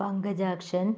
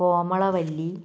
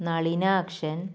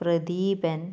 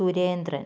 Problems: low volume